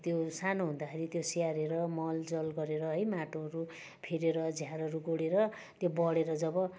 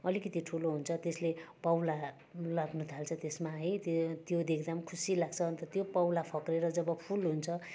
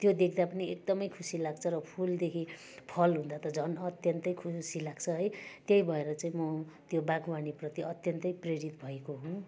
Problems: constant background noise, continuous background conversations